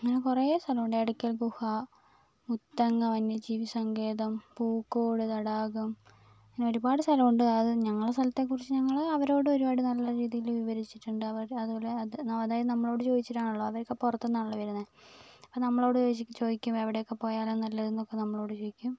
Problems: none marked